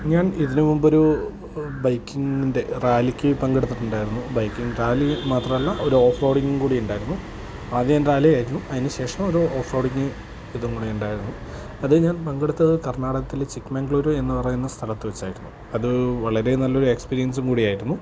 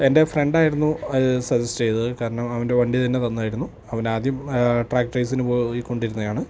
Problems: constant background noise, low volume